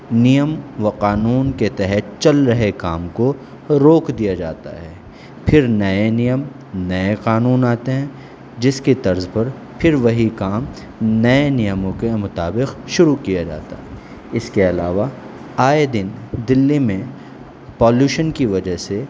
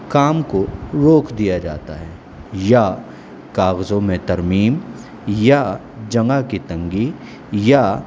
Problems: constant background noise